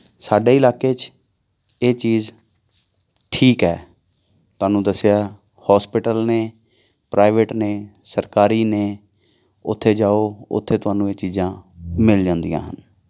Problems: background sounds at intervals